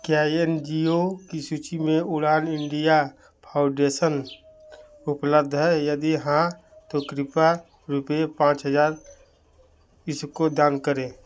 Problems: none marked